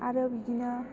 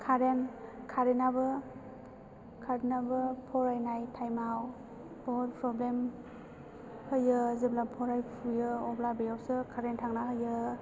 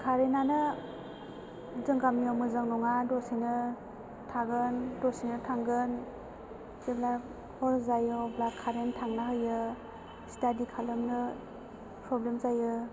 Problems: background sounds at intervals